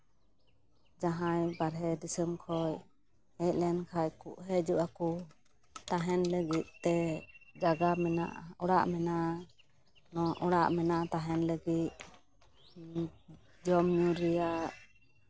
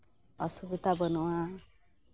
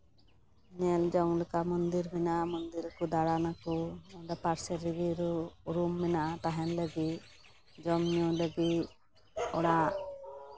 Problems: none marked